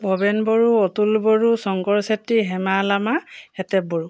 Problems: none marked